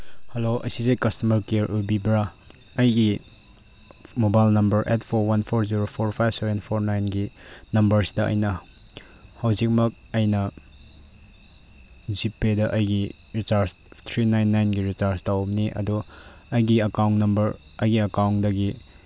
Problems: background sounds at intervals